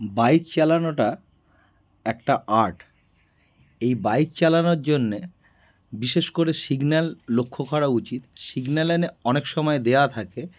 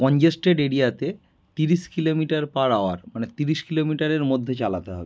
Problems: background sounds at intervals